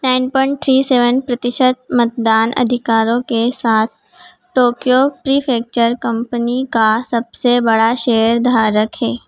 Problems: background sounds at intervals